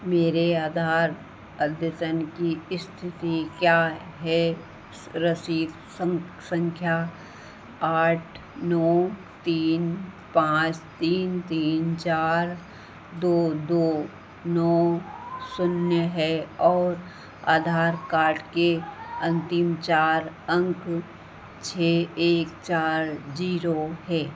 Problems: constant background noise, echo